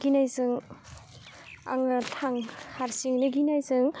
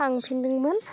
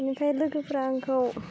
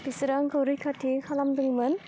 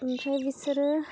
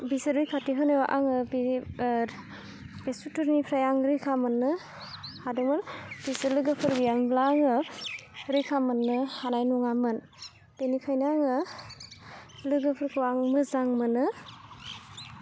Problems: low volume